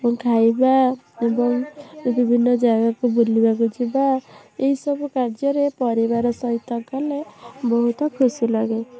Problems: constant background noise